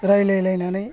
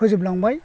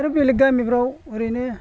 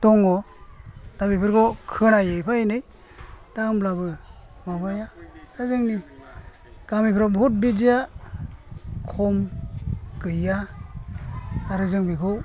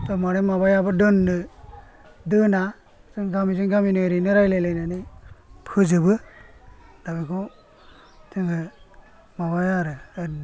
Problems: low volume